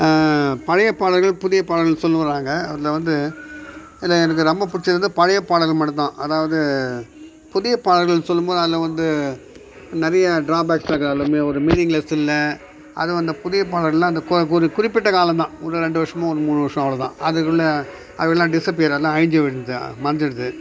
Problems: background sounds at intervals